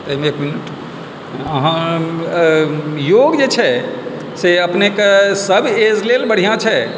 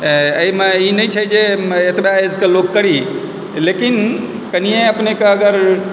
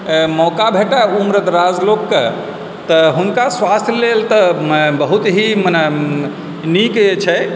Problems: constant background noise, background conversations at intervals